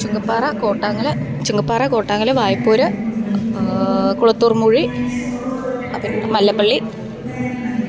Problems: none marked